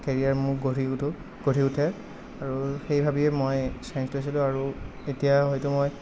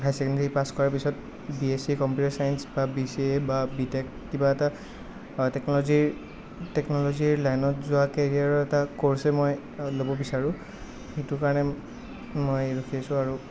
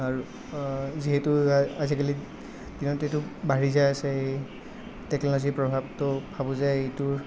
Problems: none marked